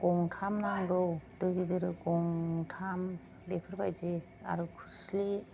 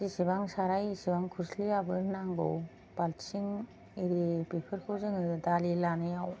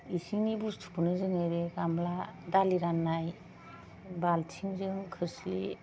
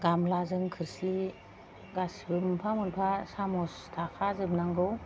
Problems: low volume